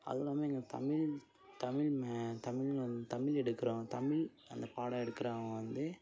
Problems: background sounds at intervals, low volume